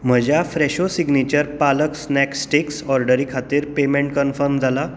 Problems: background sounds at intervals